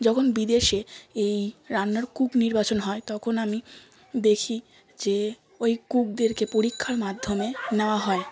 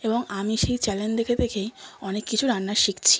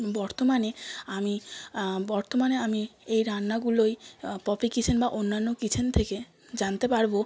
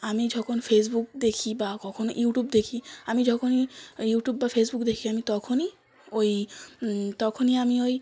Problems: background sounds at intervals, continuous background conversations